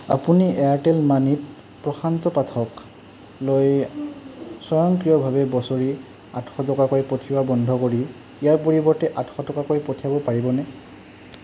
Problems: constant background noise